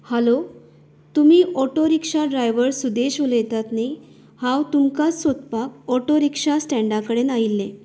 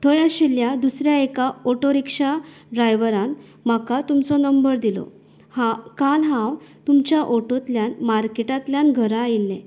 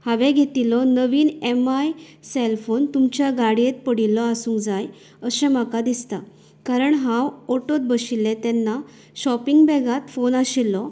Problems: background sounds at intervals